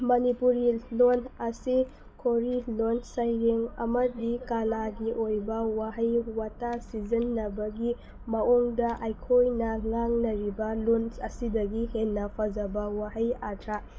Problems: none marked